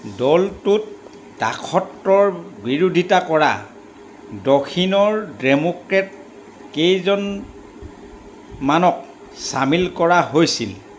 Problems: constant background noise